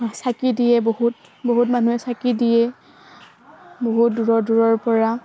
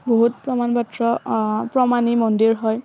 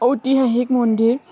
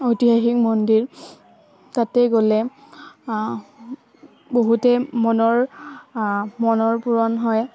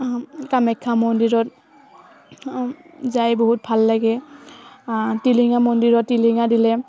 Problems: none marked